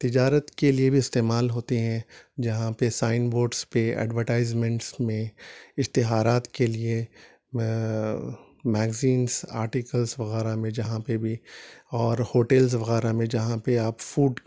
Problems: none marked